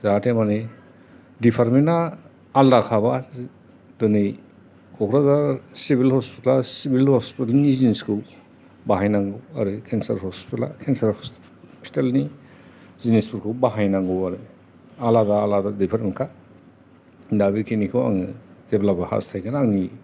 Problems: constant background noise, background conversations at intervals